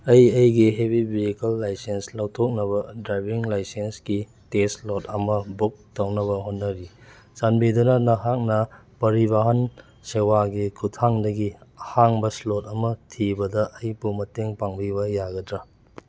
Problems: none marked